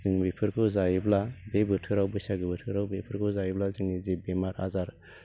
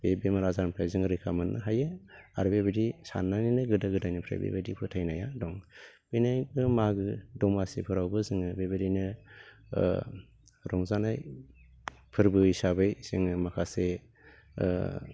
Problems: low volume